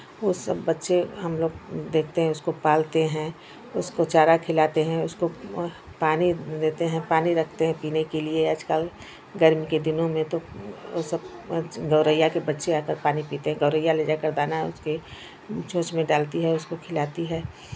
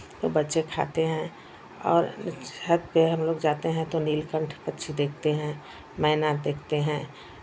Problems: none marked